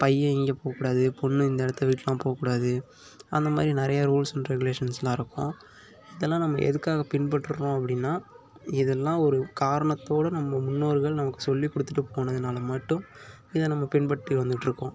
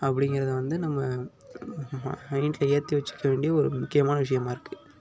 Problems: none marked